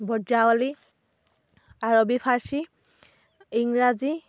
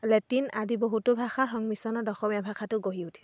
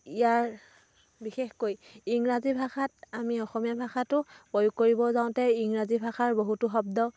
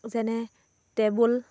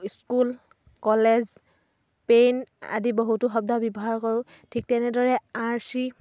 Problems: none marked